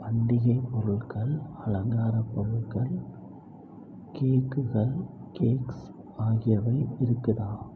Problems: low volume